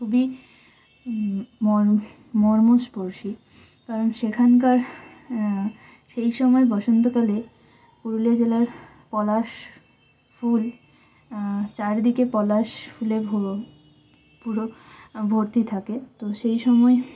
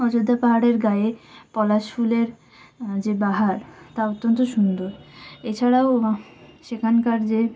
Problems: constant background noise